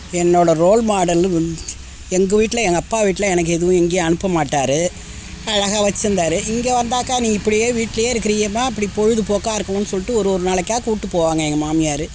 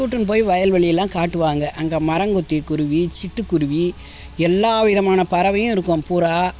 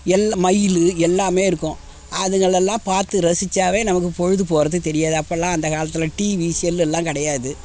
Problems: constant background noise